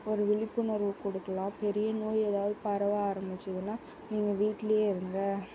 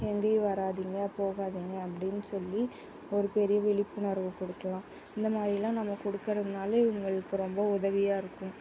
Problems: constant background noise